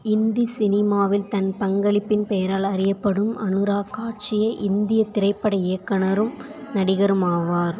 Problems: background sounds at intervals, background conversations at intervals